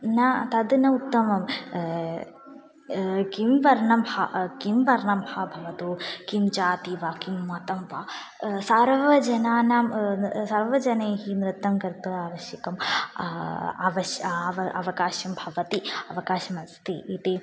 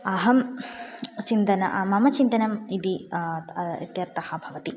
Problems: none marked